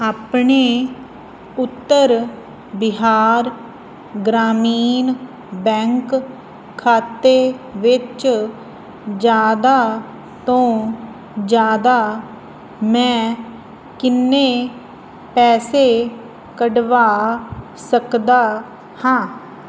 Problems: constant background noise